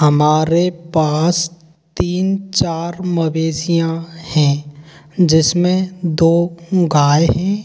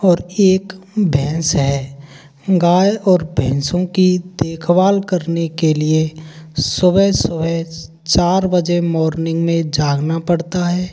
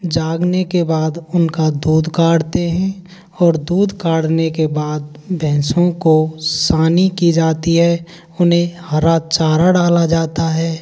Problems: constant background noise